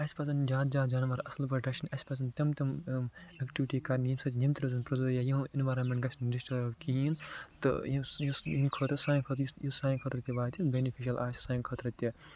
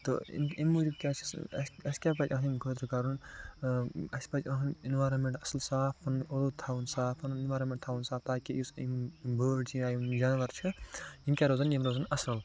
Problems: constant background noise, low volume